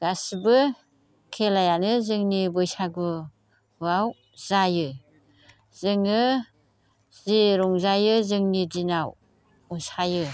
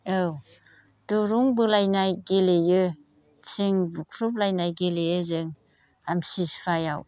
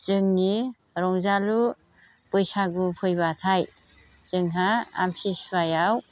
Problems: none marked